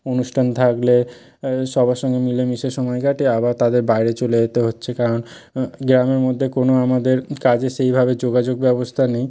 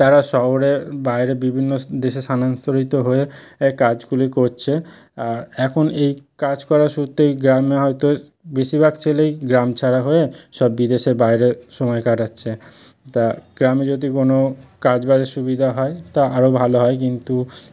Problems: none marked